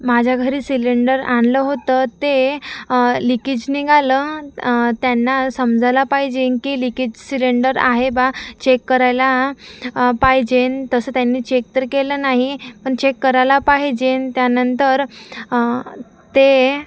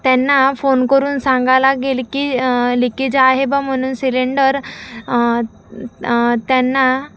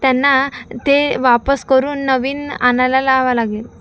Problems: background sounds at intervals